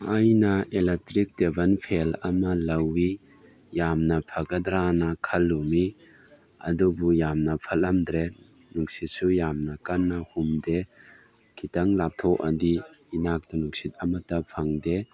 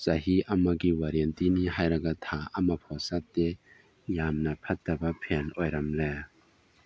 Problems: background sounds at intervals